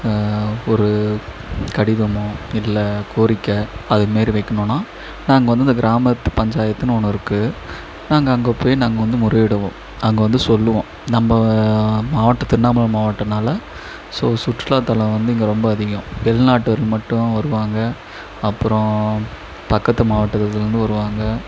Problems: echo